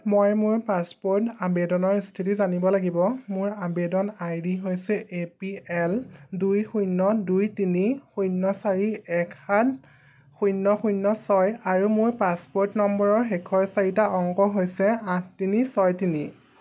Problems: background sounds at intervals